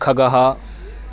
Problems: none marked